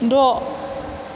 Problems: constant background noise